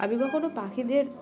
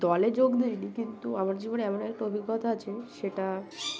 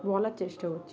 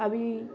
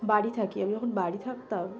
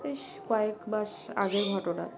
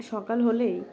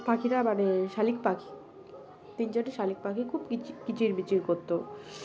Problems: background sounds at intervals, background conversations at intervals